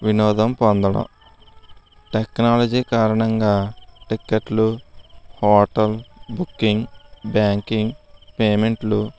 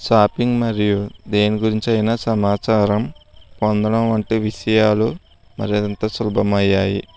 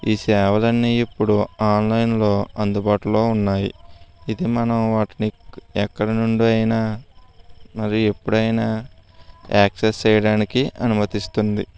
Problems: constant background noise